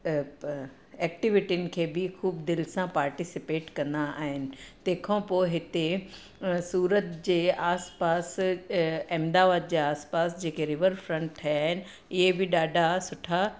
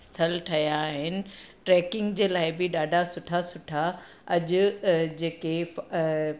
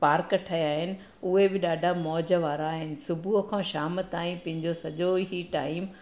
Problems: none marked